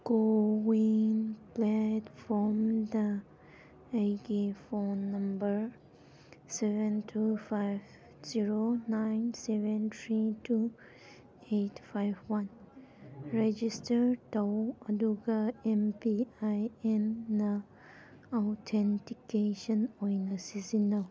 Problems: none marked